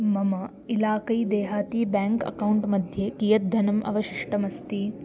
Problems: constant background noise